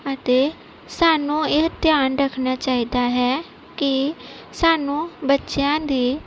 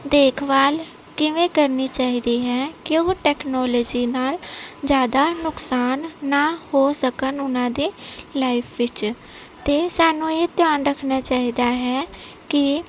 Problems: none marked